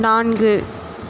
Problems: constant background noise, continuous background conversations